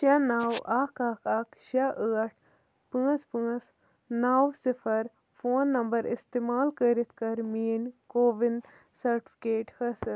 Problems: background sounds at intervals